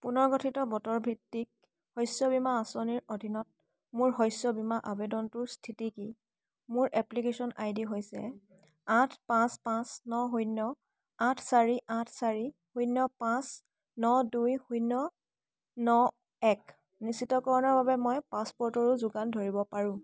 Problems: constant background noise, background conversations at intervals